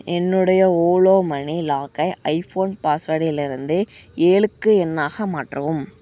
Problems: none marked